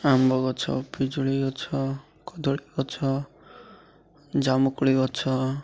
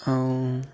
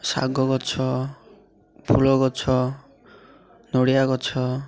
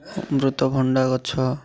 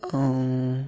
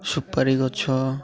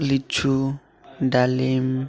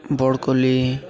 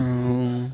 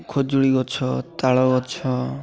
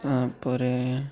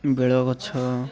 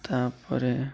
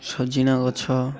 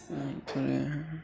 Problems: constant background noise, continuous background conversations